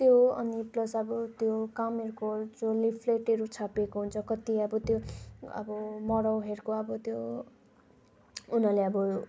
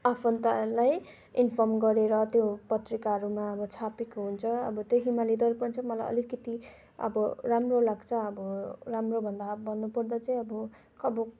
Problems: constant background noise